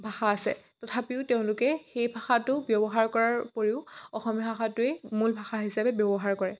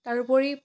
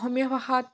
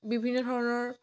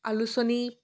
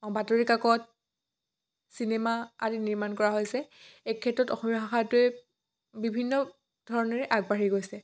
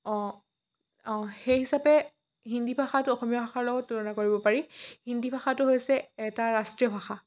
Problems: none marked